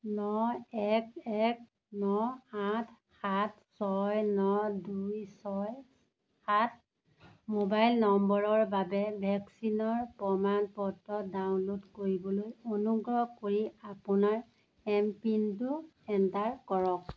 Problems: none marked